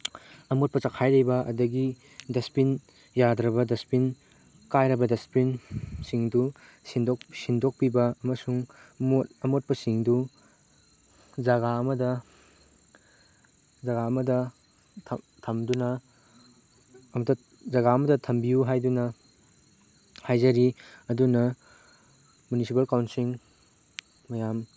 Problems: background sounds at intervals